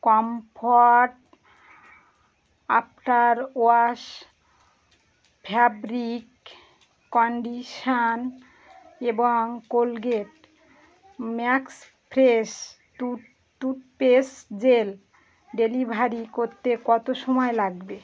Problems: background sounds at intervals